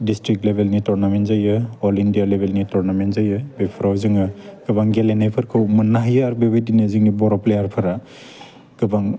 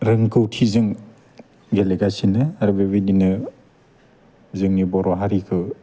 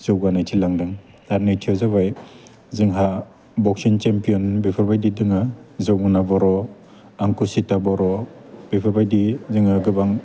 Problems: constant background noise